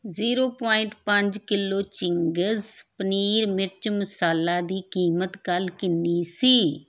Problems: background sounds at intervals